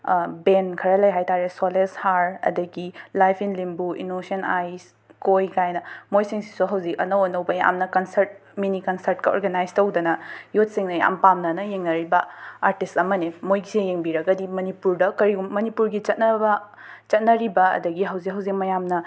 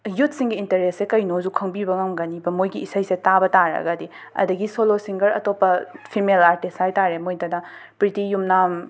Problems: background sounds at intervals